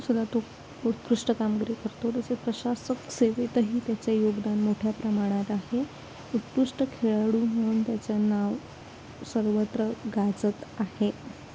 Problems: constant background noise, low volume